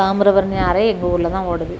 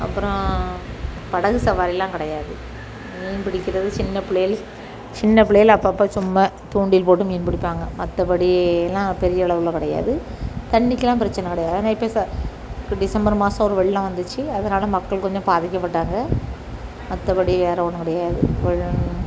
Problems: constant background noise